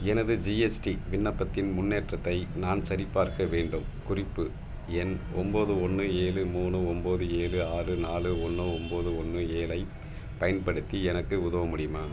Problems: background sounds at intervals